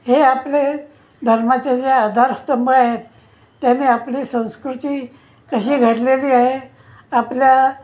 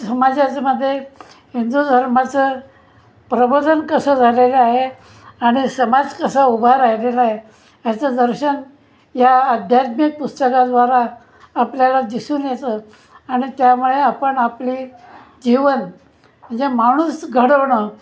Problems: constant background noise, continuous background conversations